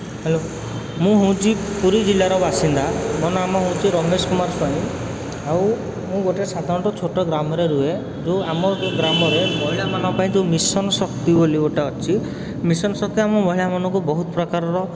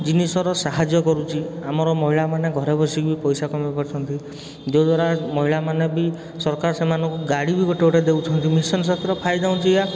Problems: constant background noise